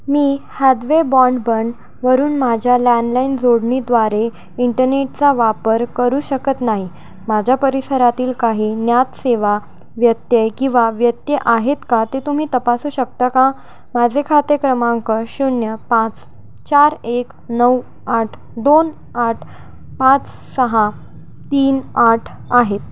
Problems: constant background noise